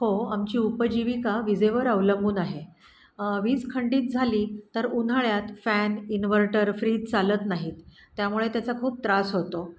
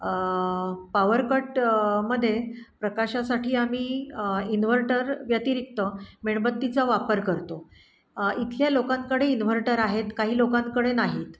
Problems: background sounds at intervals